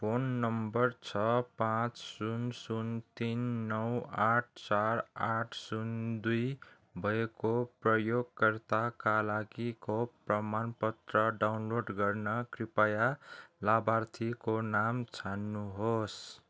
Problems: none marked